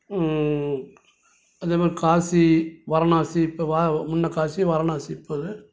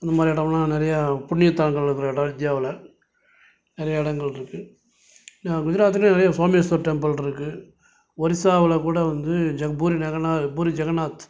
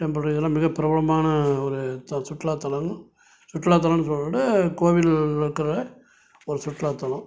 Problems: none marked